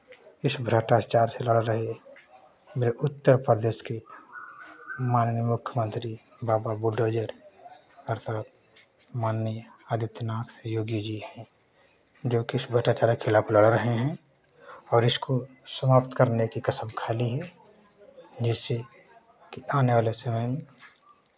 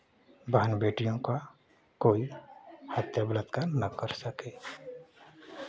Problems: constant background noise, background conversations at intervals